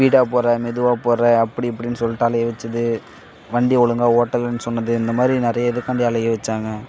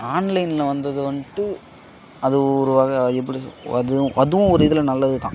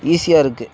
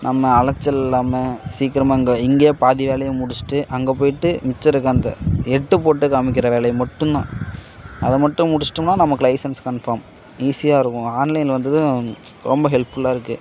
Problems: background sounds at intervals